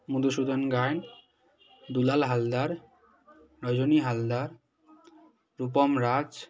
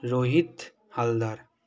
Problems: continuous background conversations